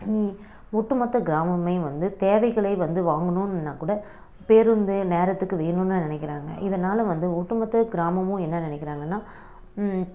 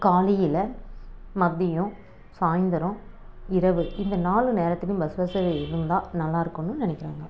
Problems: background sounds at intervals